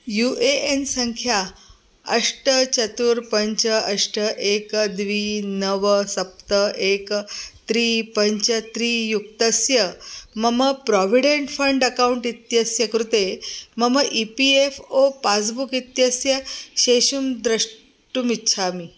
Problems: none marked